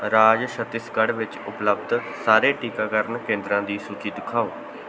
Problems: none marked